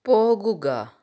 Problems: none marked